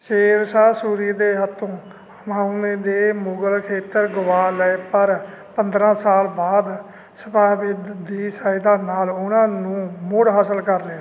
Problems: constant background noise